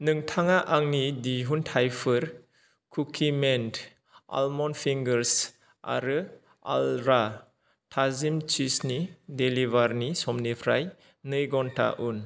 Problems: none marked